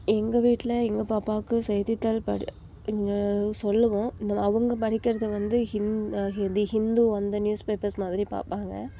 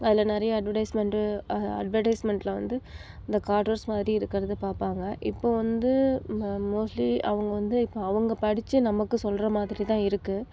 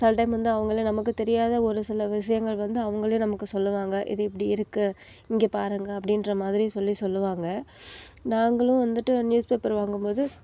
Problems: background conversations at intervals